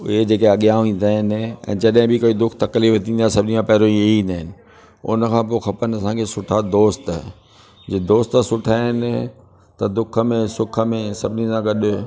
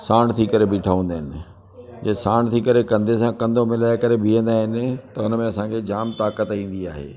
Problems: constant background noise